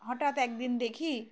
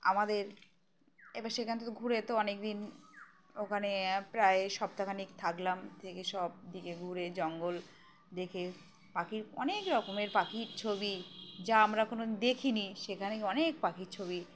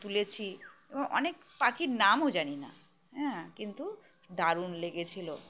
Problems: none marked